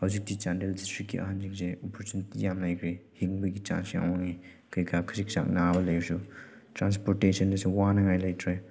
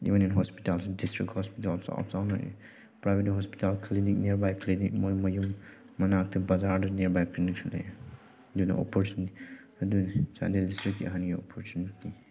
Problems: none marked